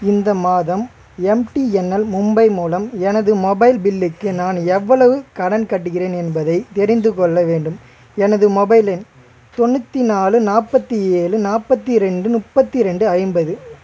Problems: constant background noise, background conversations at intervals